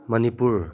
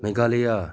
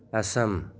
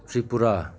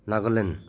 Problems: none marked